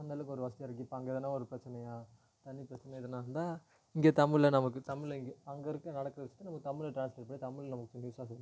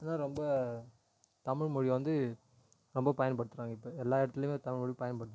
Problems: low volume